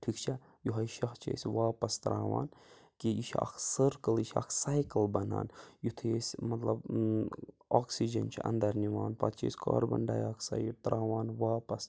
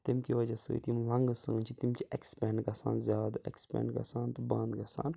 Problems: background sounds at intervals